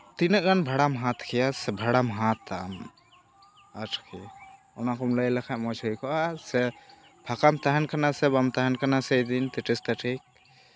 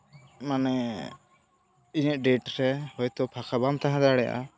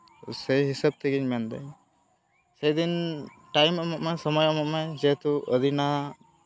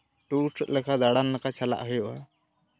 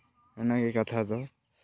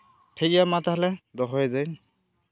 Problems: background sounds at intervals, background conversations at intervals